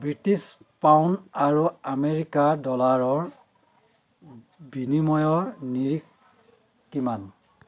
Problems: constant background noise